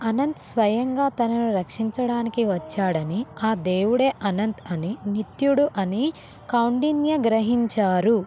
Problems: none marked